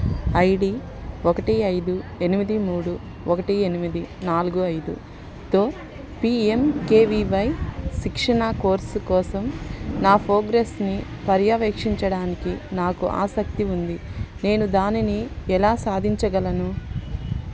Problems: constant background noise